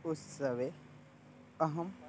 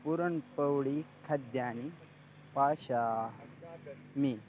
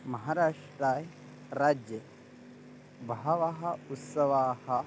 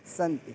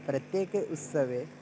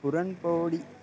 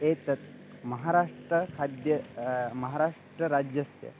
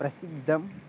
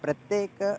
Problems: constant background noise